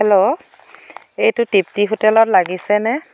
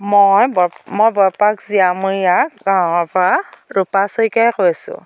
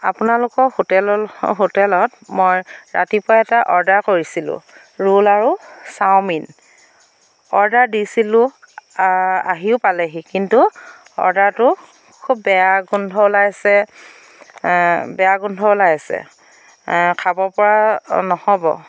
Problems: constant background noise